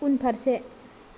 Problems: none marked